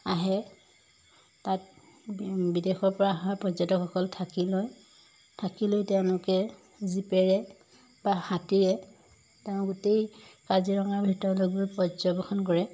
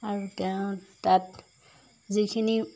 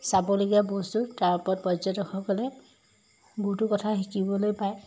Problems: background sounds at intervals